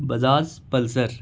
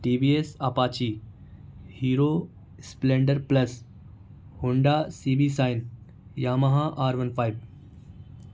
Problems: none marked